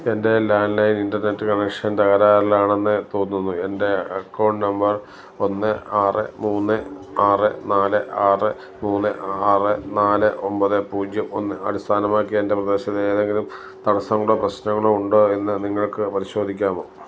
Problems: none marked